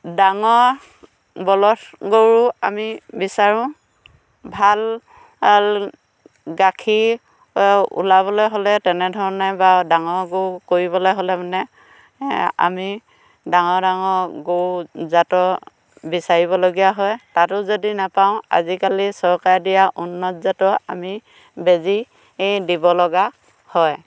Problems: constant background noise